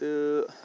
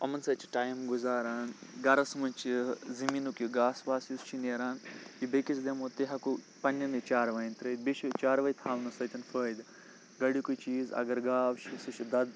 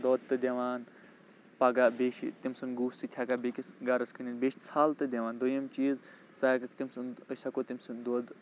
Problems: none marked